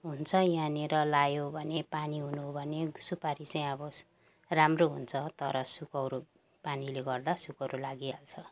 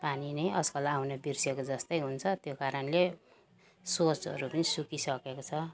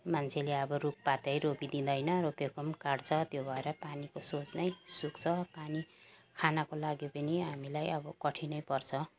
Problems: background sounds at intervals